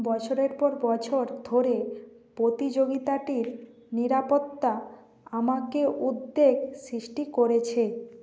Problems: constant background noise